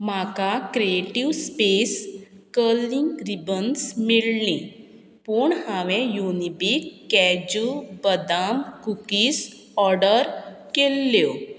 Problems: constant background noise